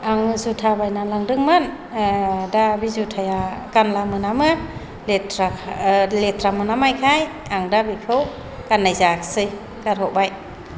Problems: low volume